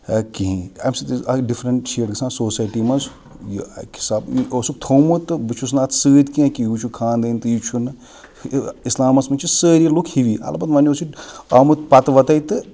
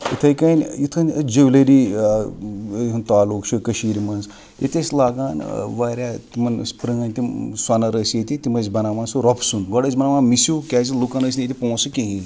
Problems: background sounds at intervals